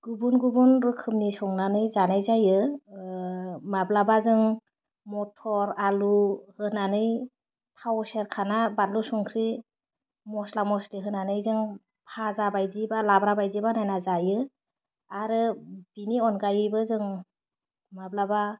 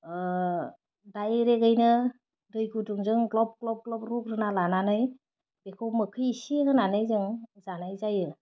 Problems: none marked